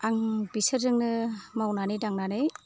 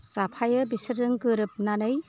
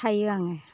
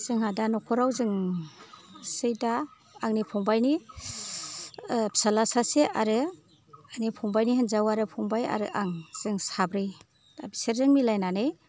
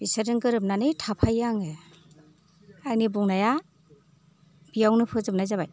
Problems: low volume